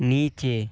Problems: constant background noise